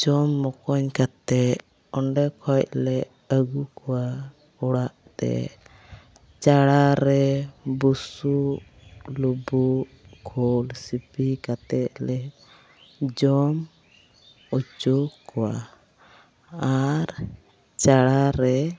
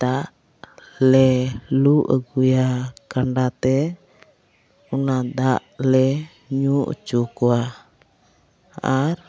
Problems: background sounds at intervals, continuous background conversations